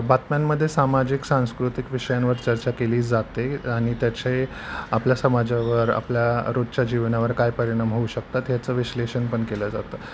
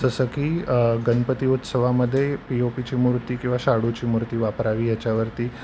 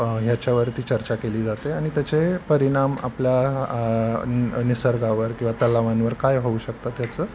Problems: none marked